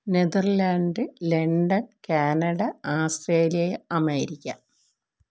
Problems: none marked